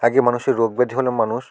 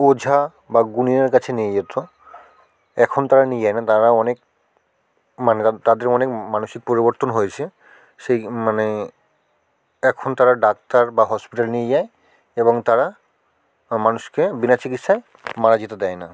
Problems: background conversations at intervals